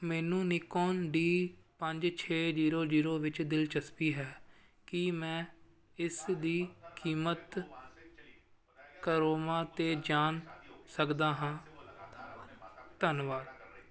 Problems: background conversations at intervals